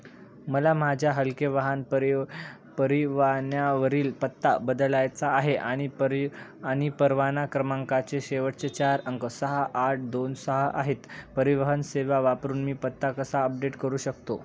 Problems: none marked